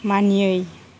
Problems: constant background noise